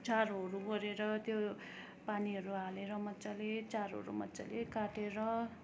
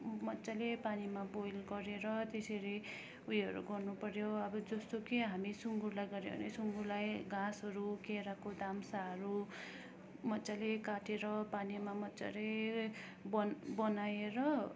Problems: none marked